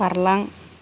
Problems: constant background noise